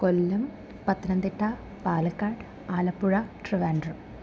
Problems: constant background noise, low volume